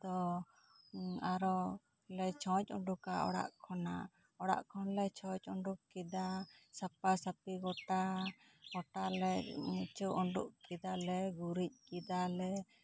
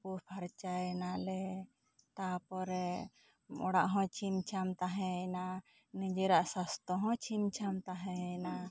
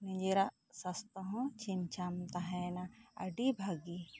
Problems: low volume